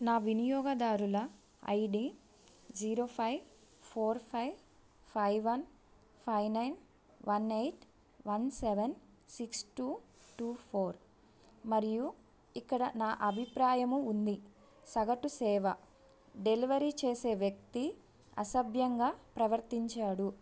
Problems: none marked